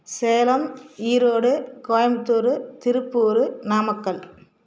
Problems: none marked